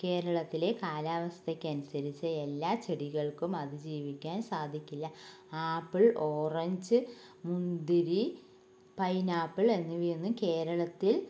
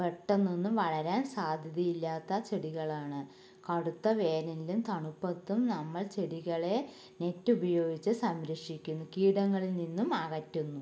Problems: low volume